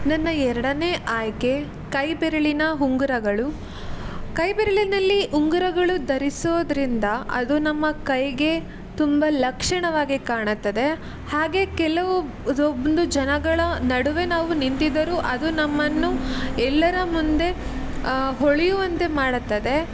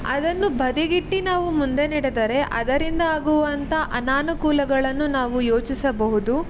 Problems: constant background noise